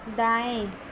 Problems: constant background noise